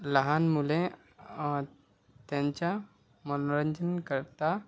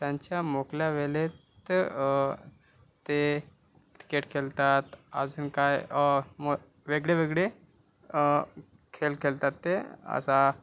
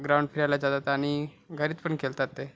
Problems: none marked